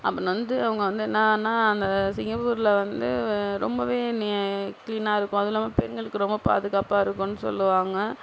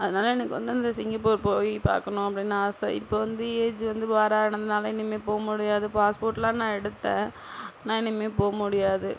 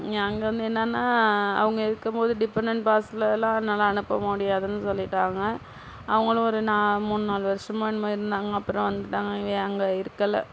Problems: none marked